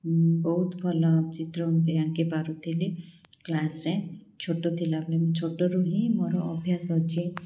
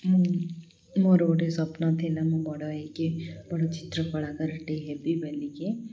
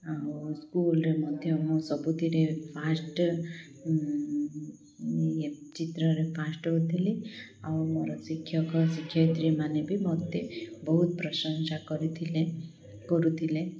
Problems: none marked